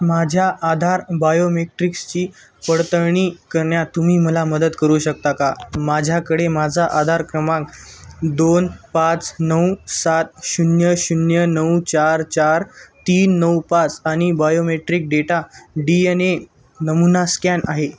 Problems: none marked